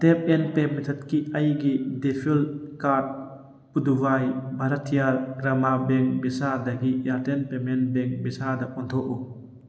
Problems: background sounds at intervals, background conversations at intervals